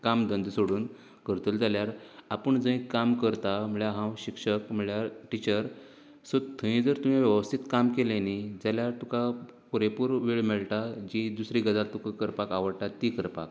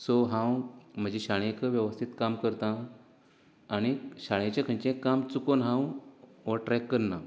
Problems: none marked